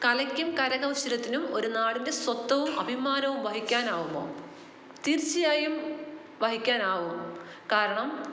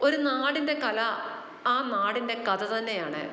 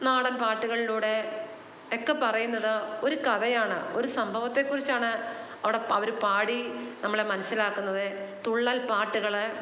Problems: none marked